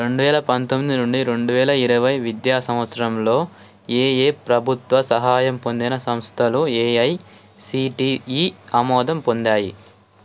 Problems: constant background noise